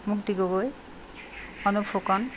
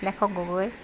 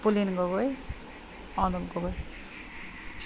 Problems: none marked